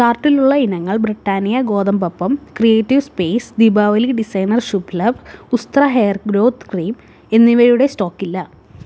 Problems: none marked